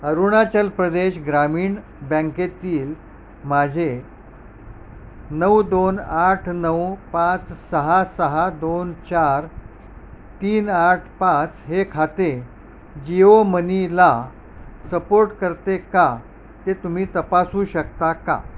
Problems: background sounds at intervals